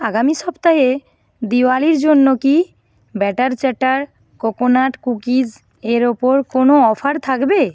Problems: background sounds at intervals